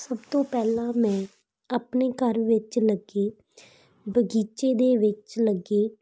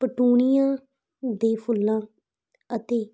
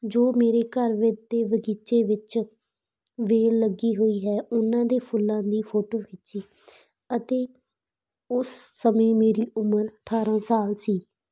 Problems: constant background noise